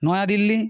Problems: constant background noise